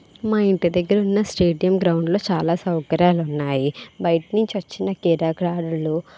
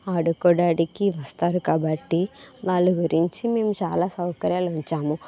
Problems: none marked